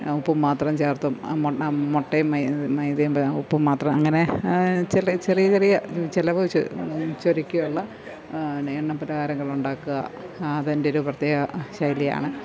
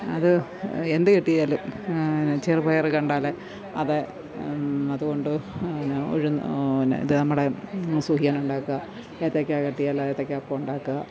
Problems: none marked